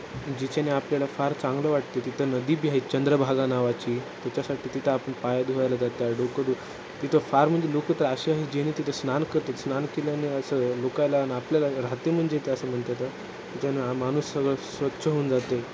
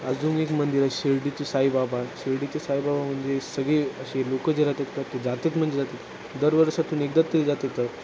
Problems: constant background noise